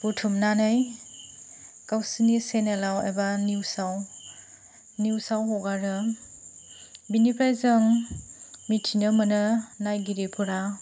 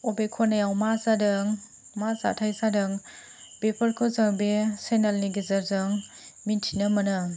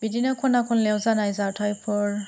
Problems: low volume